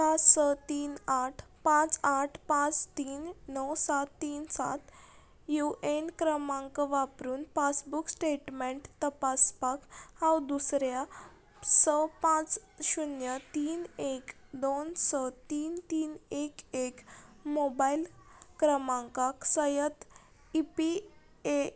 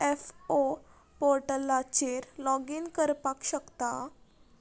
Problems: none marked